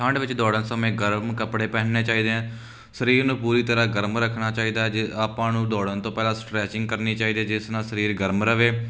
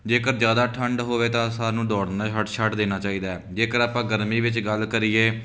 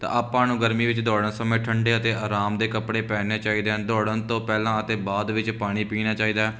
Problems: none marked